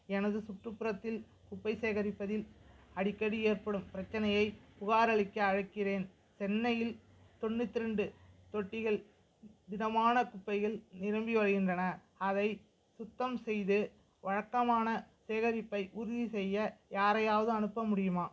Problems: none marked